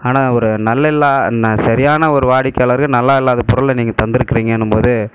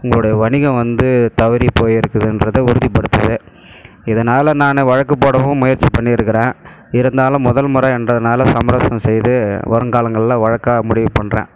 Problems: background sounds at intervals